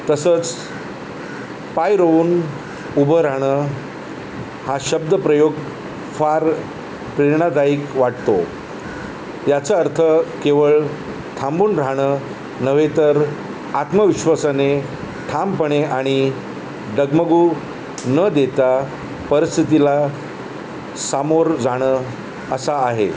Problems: none marked